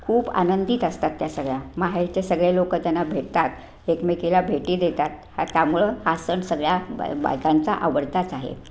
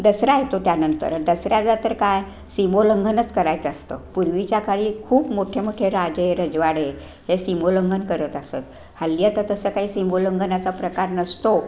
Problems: none marked